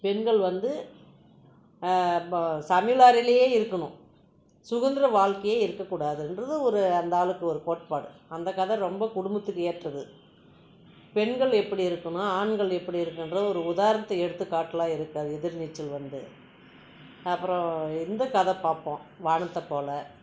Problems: constant background noise